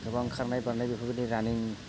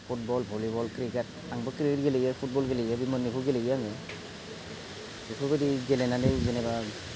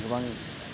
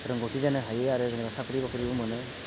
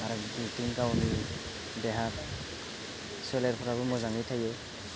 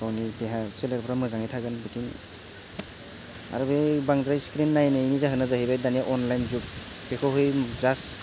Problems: constant background noise